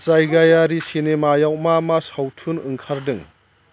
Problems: constant background noise